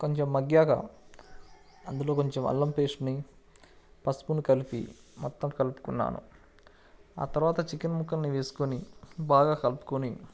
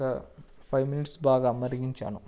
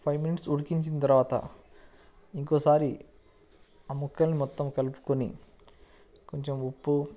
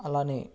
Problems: none marked